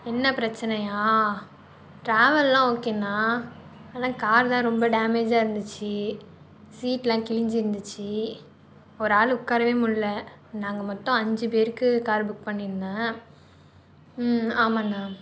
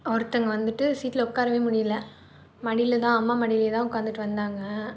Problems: none marked